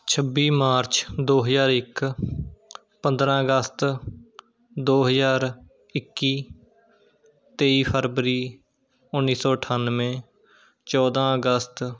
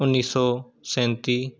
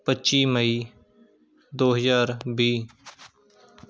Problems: background sounds at intervals, background conversations at intervals